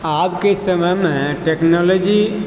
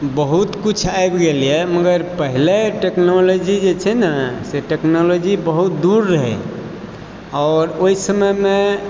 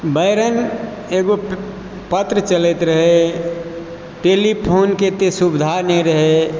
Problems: background sounds at intervals